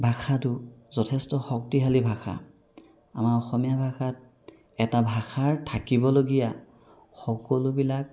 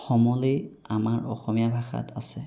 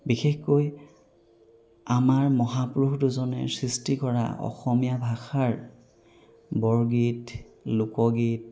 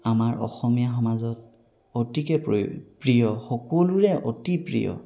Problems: background sounds at intervals